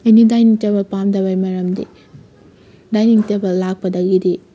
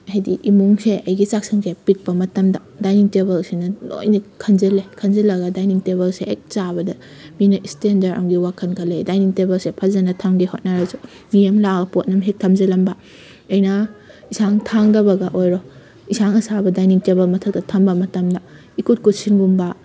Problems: background sounds at intervals